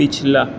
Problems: none marked